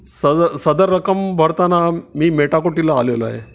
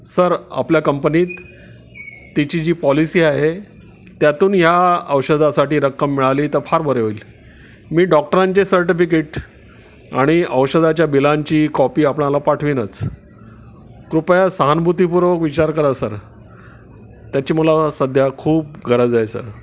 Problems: none marked